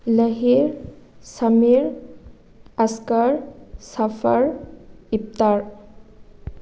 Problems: none marked